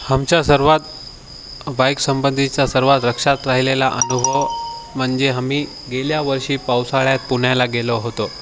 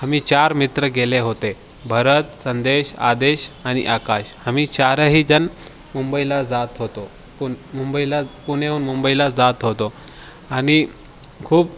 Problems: none marked